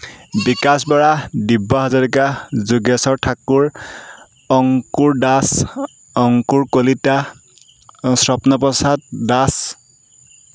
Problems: background sounds at intervals